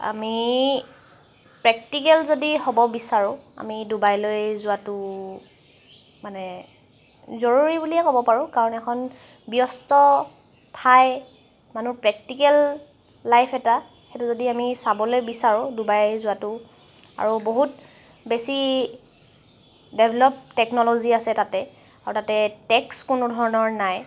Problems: background sounds at intervals